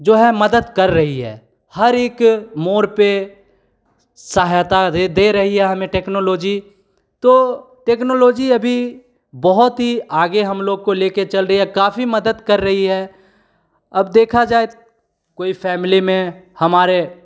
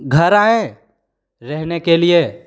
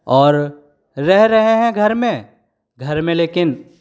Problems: none marked